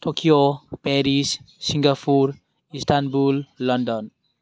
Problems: constant background noise